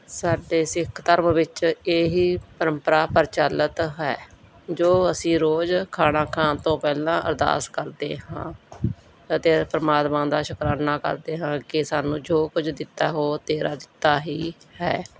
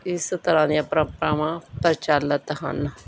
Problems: none marked